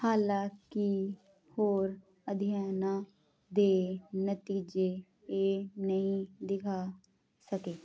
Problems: none marked